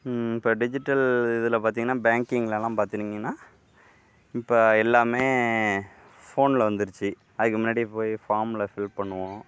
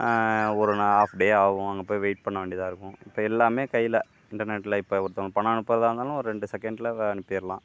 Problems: none marked